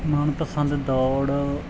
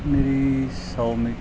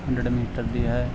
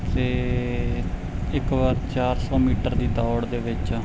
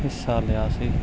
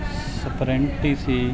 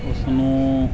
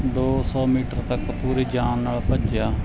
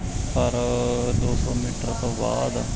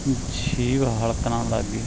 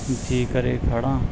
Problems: background sounds at intervals